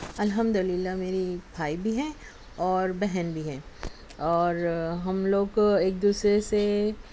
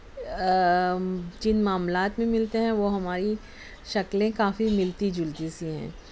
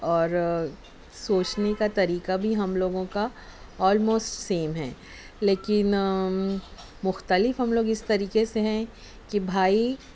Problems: none marked